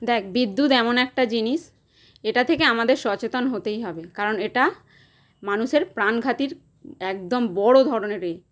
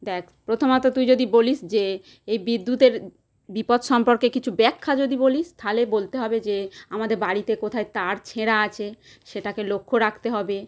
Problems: constant background noise